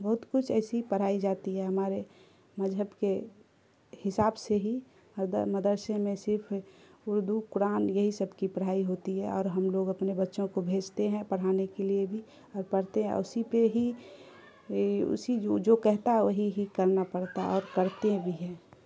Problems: constant background noise